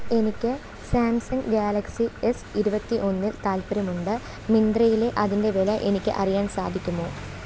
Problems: constant background noise, low volume